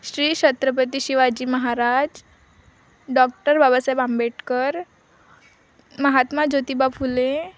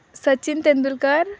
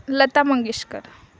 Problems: none marked